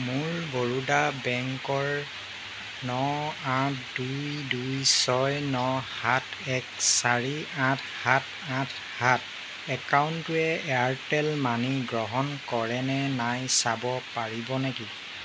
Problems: constant background noise